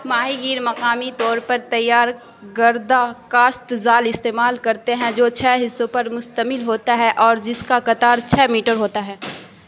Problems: constant background noise